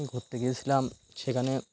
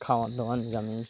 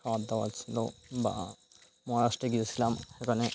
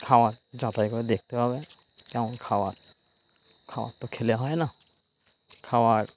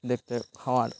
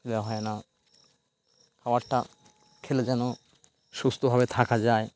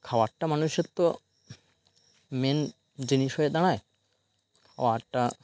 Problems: constant background noise